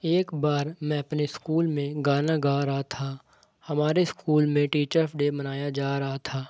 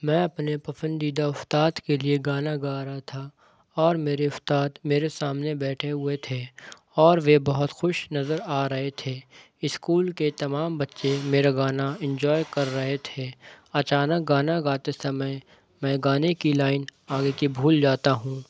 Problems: background conversations at intervals